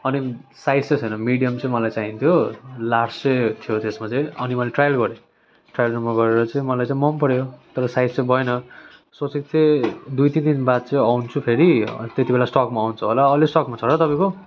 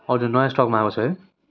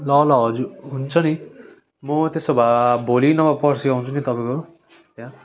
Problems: continuous background conversations